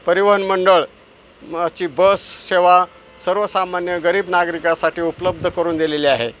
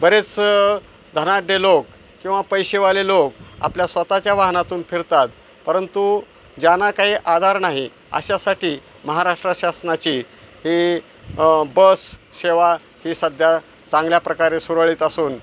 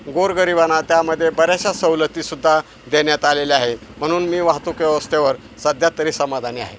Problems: none marked